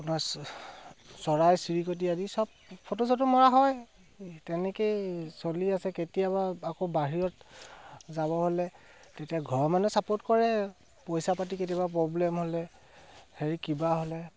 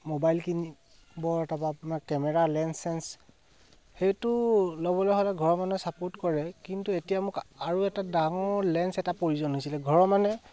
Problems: constant background noise